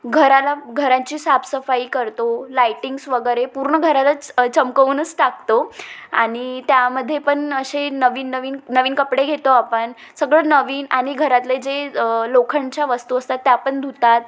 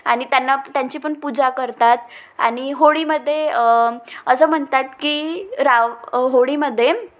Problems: constant background noise, background conversations at intervals, echo